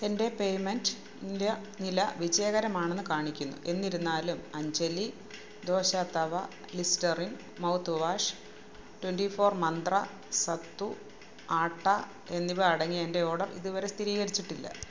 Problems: background sounds at intervals